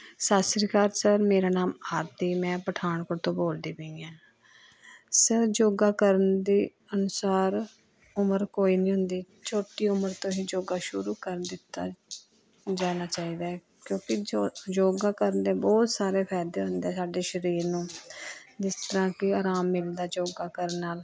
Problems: constant background noise